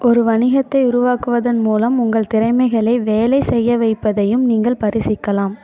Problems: continuous background conversations